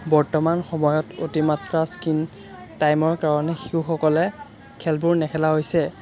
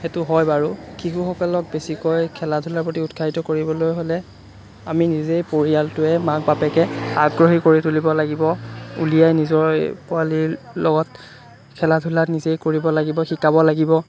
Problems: constant background noise